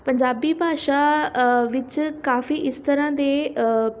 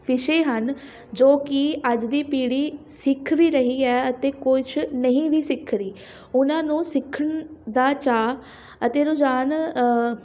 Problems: constant background noise, background conversations at intervals